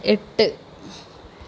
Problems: none marked